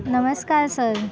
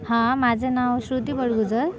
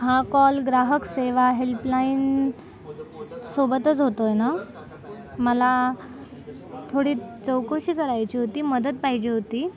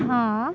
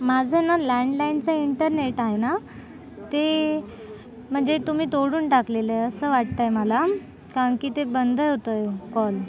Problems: constant background noise